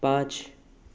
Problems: none marked